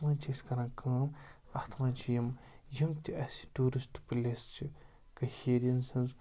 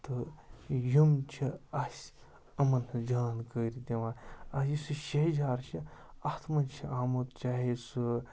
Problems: background sounds at intervals, background conversations at intervals